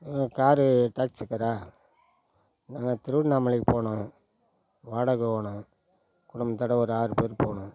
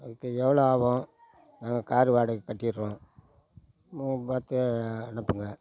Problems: none marked